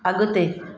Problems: constant background noise